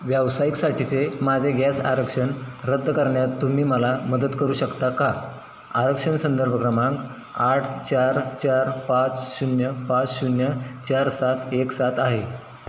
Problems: constant background noise